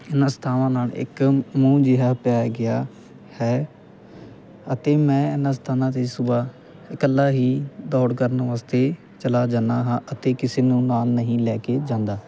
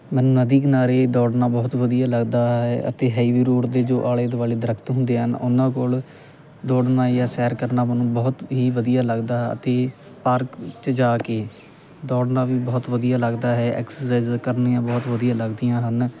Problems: constant background noise